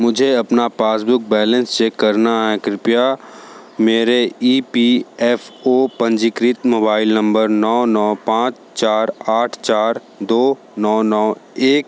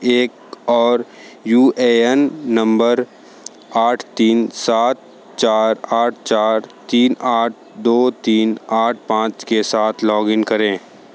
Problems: constant background noise